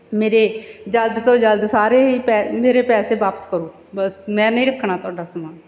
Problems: none marked